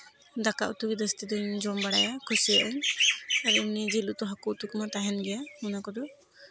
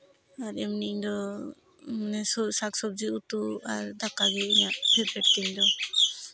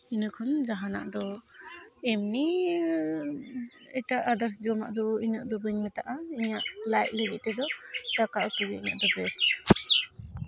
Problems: constant background noise, background conversations at intervals